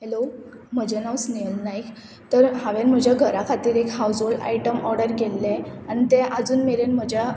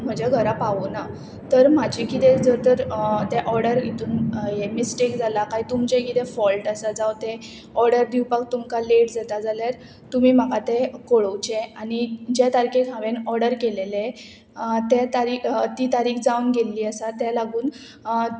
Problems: constant background noise